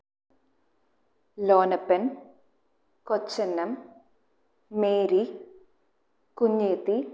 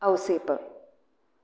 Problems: low volume